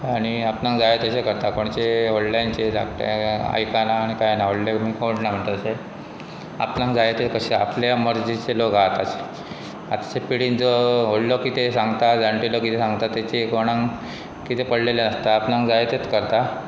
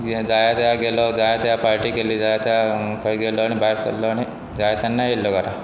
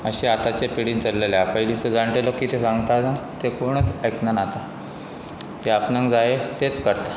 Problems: constant background noise